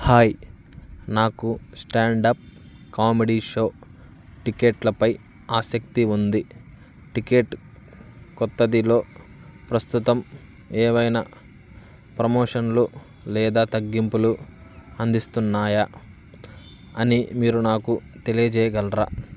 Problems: constant background noise